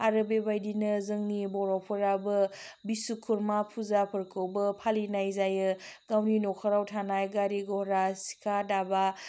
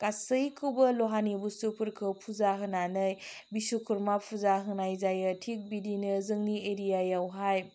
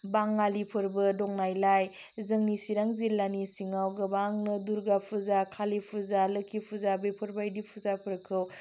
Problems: none marked